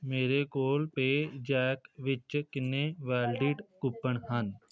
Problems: constant background noise, background conversations at intervals